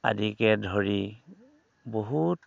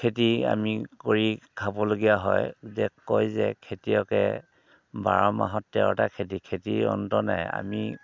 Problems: background sounds at intervals